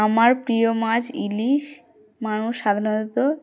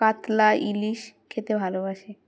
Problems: background sounds at intervals